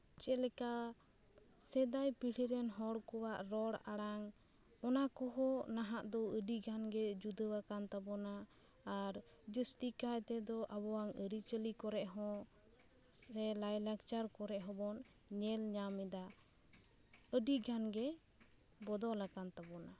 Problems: background sounds at intervals